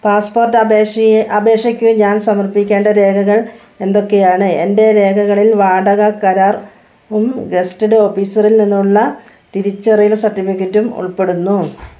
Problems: none marked